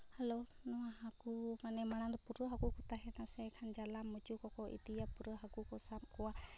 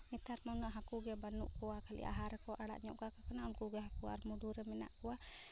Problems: low volume